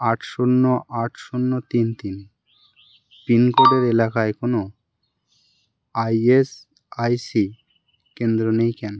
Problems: constant background noise